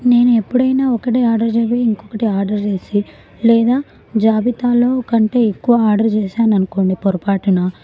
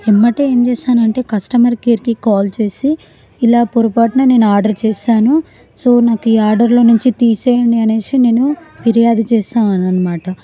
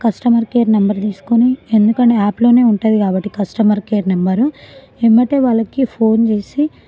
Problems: continuous background conversations